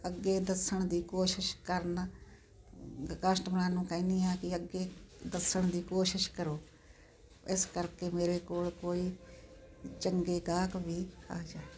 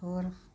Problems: constant background noise